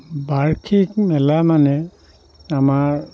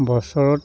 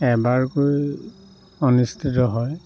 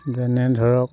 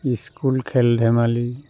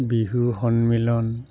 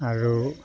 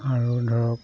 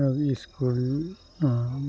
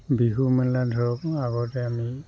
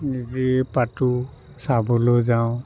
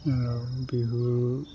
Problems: constant background noise, background conversations at intervals, low volume